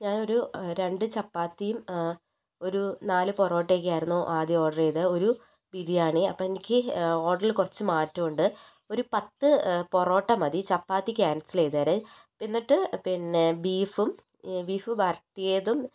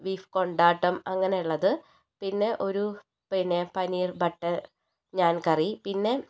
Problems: low volume